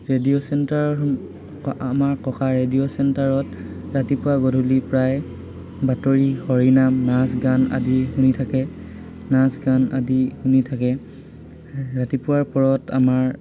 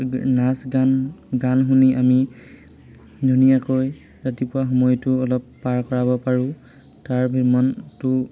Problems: constant background noise, background conversations at intervals